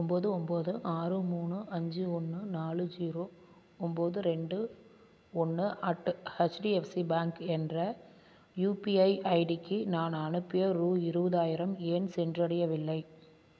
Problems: constant background noise